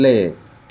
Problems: constant background noise